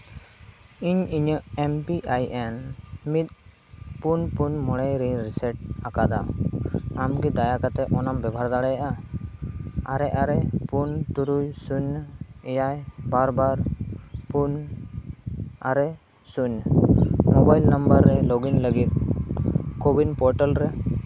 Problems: constant background noise